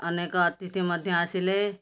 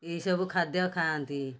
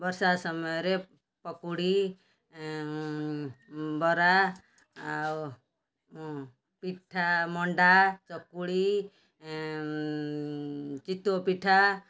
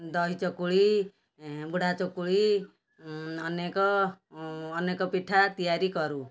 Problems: background sounds at intervals